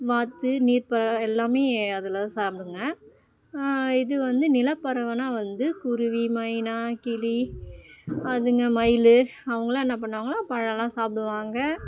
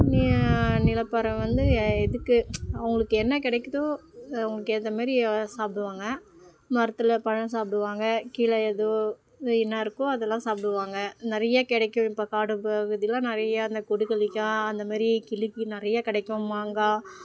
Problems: none marked